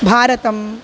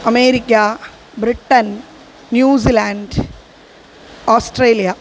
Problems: constant background noise